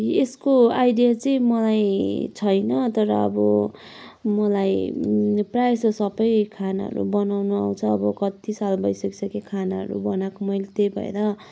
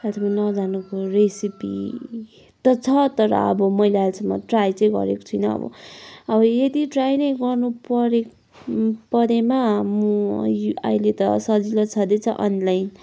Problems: none marked